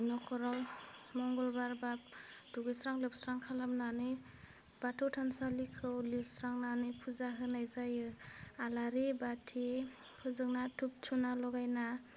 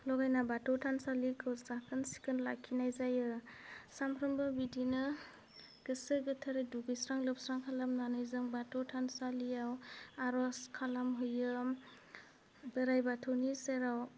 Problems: low volume